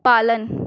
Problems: none marked